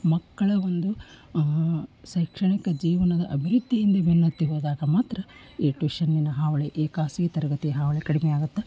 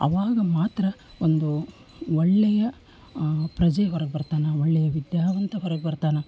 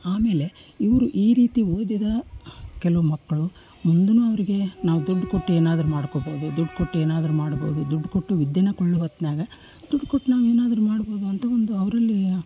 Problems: none marked